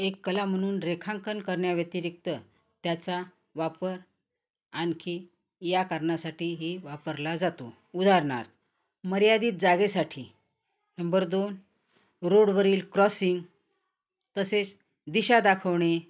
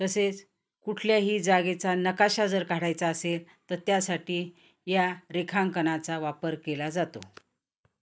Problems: constant background noise